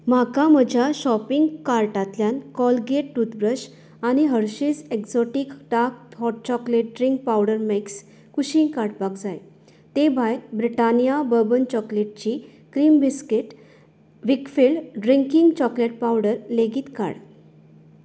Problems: background sounds at intervals